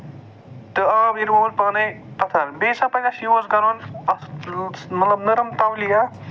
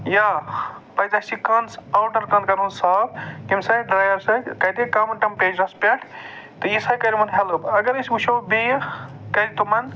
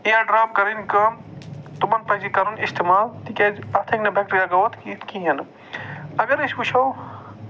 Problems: none marked